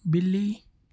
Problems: constant background noise